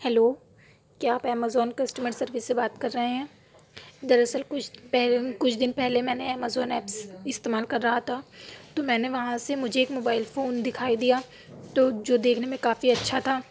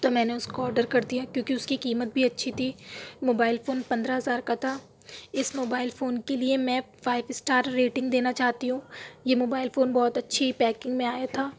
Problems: background sounds at intervals